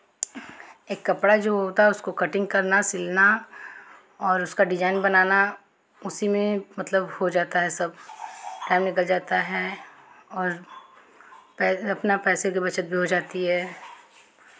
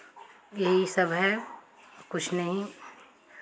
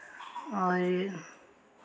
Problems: constant background noise